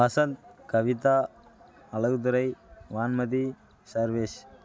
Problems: constant background noise